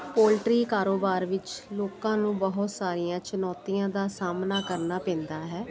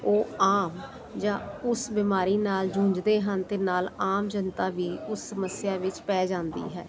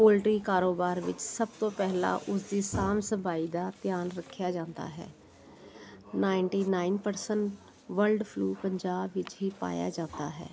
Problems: none marked